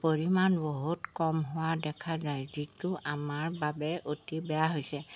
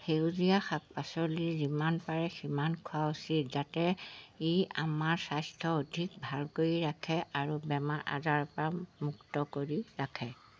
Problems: constant background noise